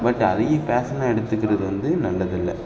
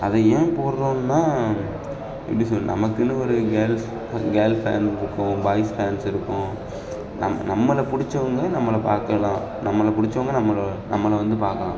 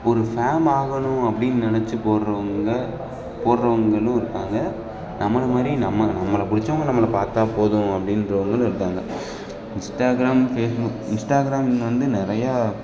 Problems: constant background noise, background conversations at intervals